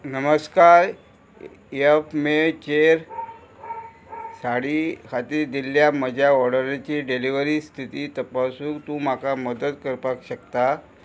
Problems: constant background noise